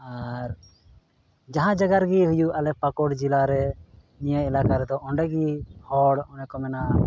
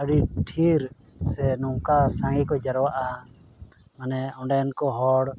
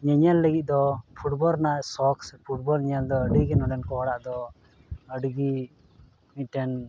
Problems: background sounds at intervals, background conversations at intervals